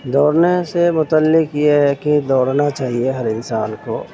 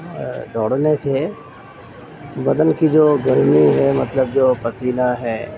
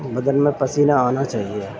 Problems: constant background noise